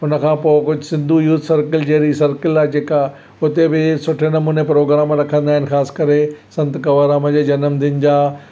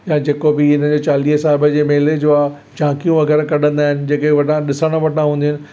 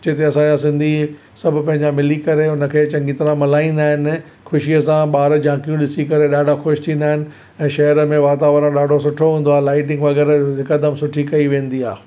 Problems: none marked